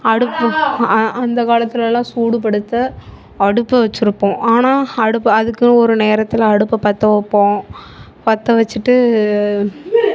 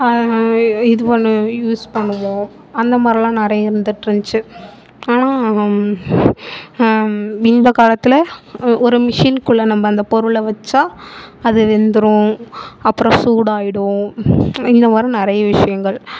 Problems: background sounds at intervals, background conversations at intervals